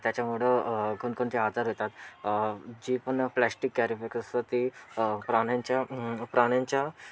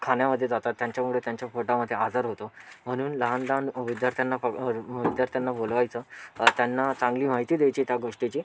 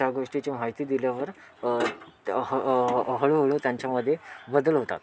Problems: constant background noise, continuous background conversations